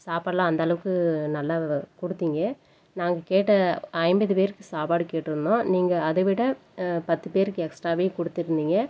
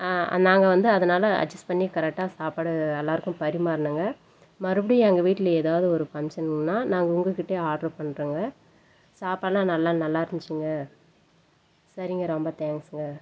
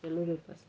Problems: background conversations at intervals